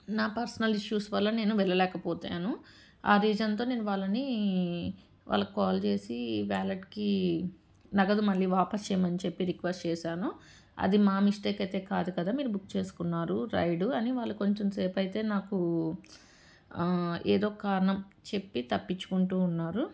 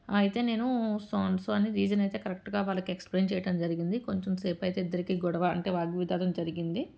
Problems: background sounds at intervals